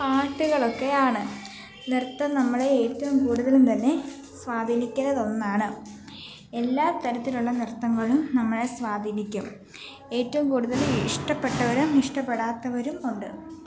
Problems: constant background noise